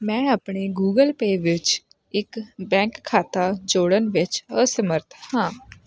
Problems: constant background noise